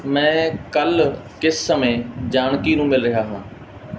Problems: background sounds at intervals